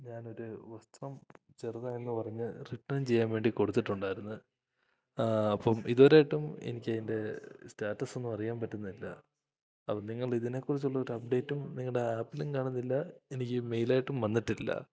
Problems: none marked